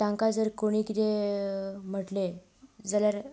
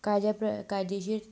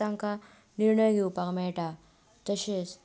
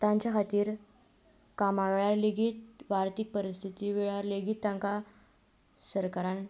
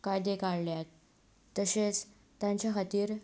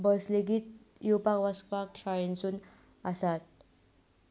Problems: constant background noise